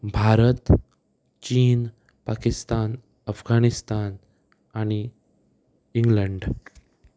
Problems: none marked